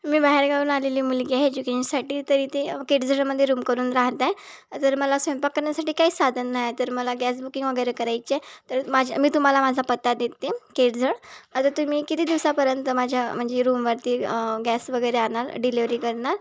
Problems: background sounds at intervals